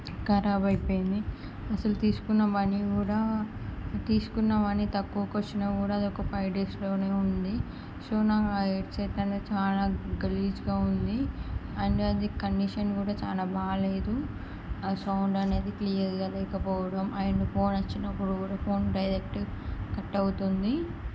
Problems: none marked